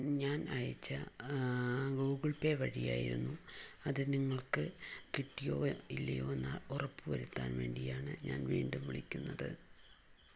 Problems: low volume